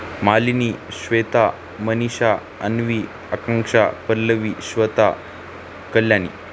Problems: constant background noise